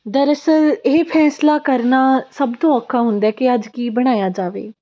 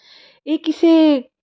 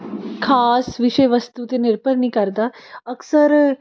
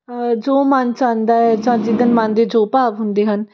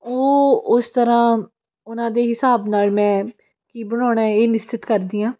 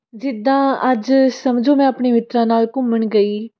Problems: constant background noise, background conversations at intervals